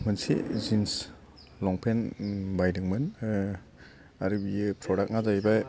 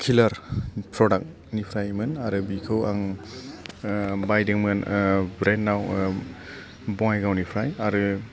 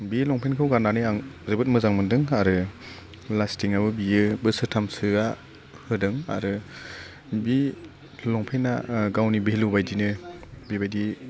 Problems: constant background noise